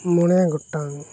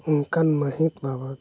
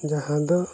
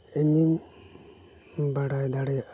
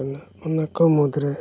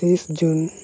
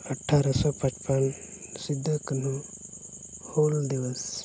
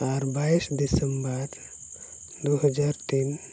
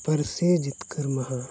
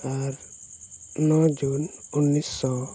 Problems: none marked